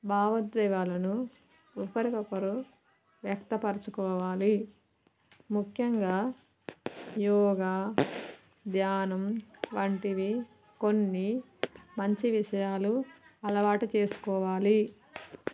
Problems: none marked